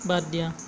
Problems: constant background noise